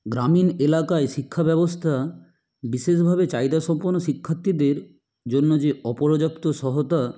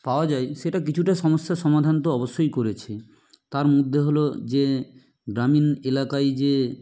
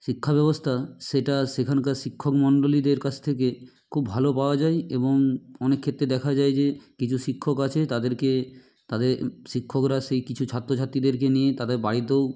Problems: none marked